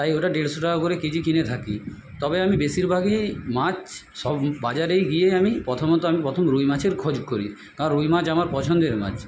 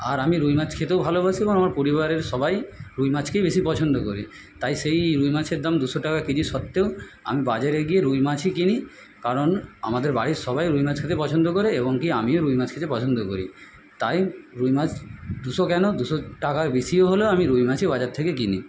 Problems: background sounds at intervals